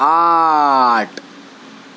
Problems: constant background noise